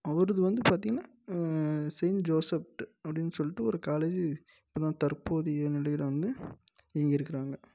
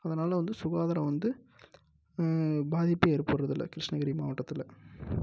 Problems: low volume